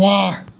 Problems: constant background noise